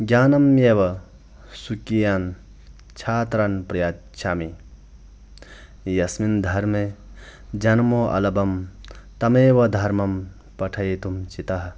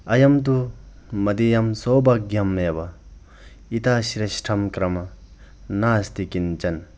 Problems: none marked